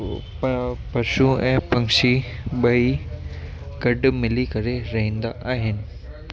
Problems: constant background noise, echo